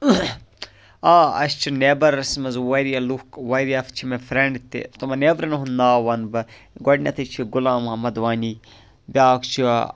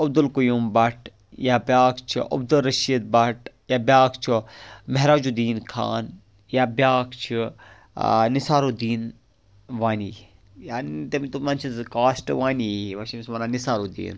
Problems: none marked